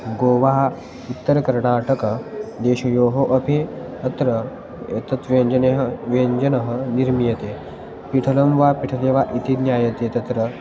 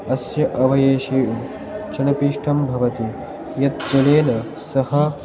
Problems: constant background noise, continuous background conversations